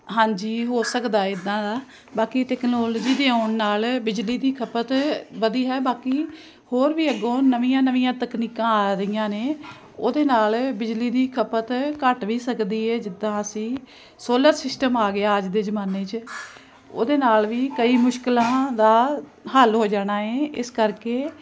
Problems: constant background noise